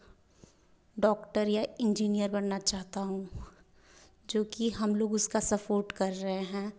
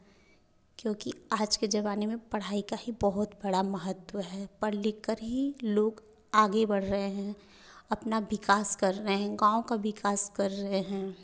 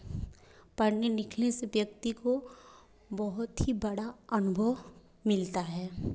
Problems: none marked